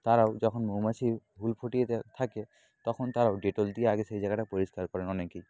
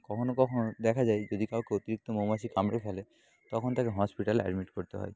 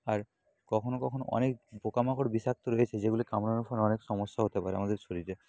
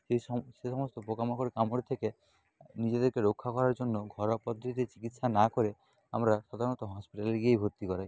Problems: constant background noise